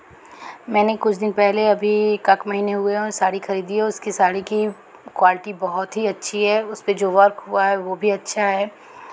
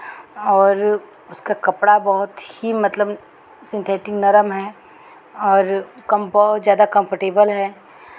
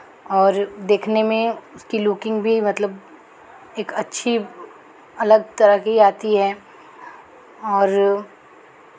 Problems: background sounds at intervals